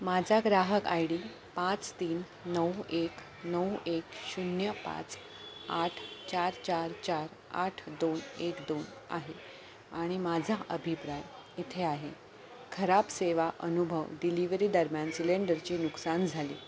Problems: constant background noise